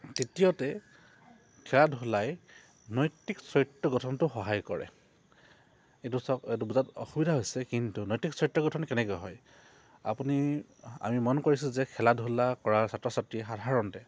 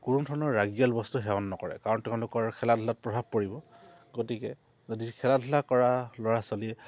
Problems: low volume